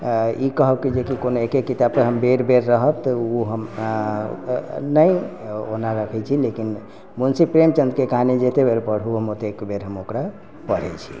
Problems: background sounds at intervals